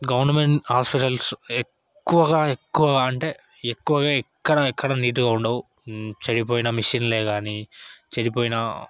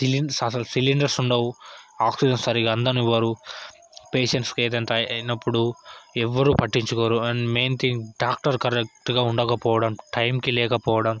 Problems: background conversations at intervals